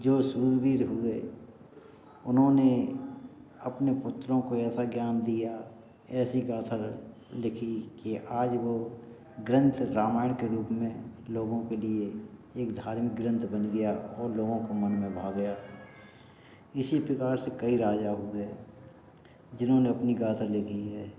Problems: background sounds at intervals, background conversations at intervals